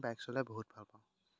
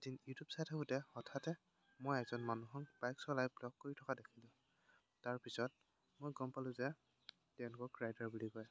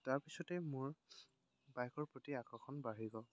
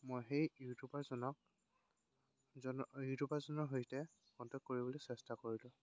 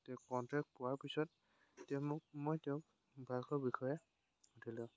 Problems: constant background noise